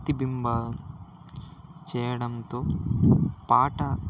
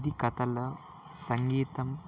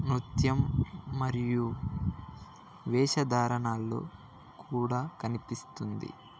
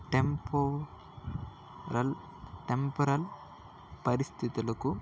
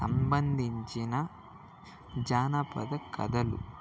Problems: background conversations at intervals